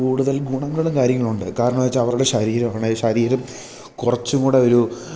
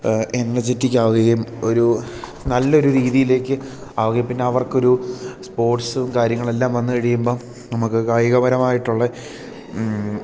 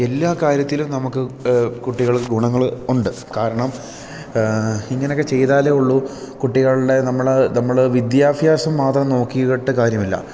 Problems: background sounds at intervals